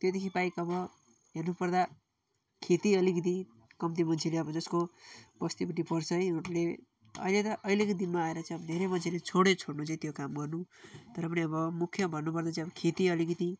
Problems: none marked